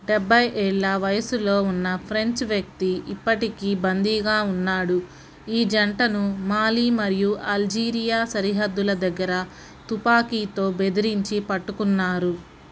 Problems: constant background noise